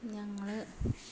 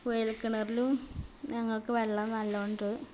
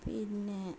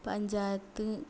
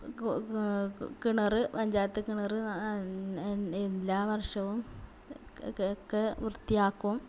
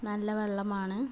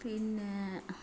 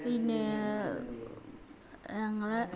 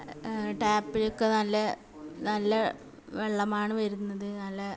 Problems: background sounds at intervals, continuous background conversations, low volume